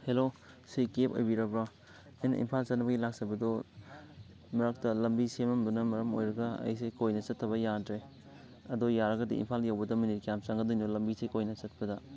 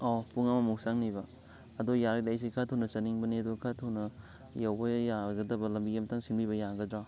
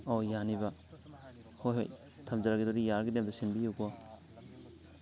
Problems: constant background noise, continuous background conversations